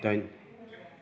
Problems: low volume